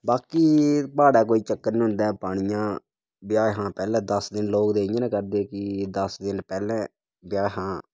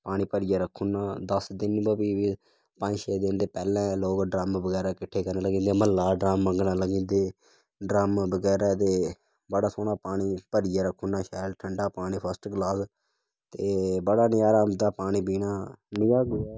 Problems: background sounds at intervals, low volume